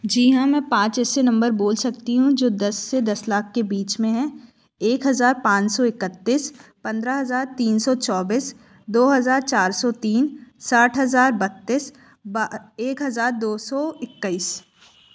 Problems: none marked